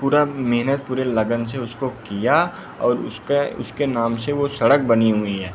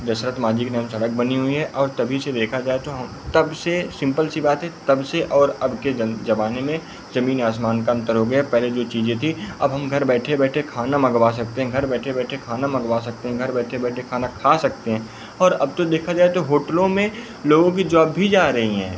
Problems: none marked